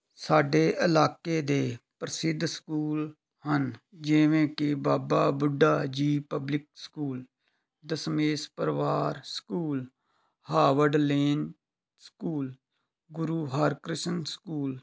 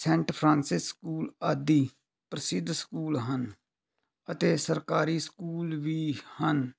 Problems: background conversations at intervals